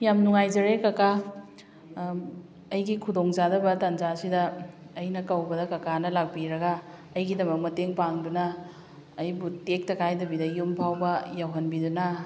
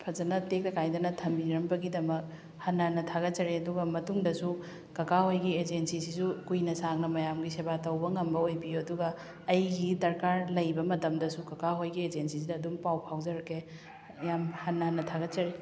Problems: background sounds at intervals